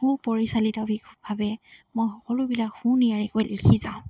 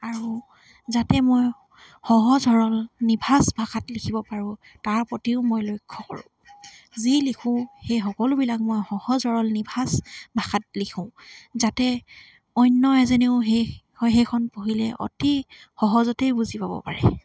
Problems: constant background noise